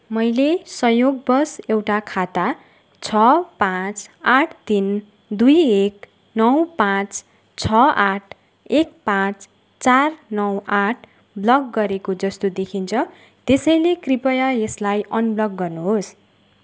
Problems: constant background noise